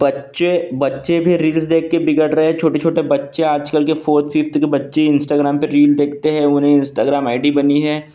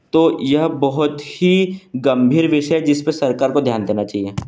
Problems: none marked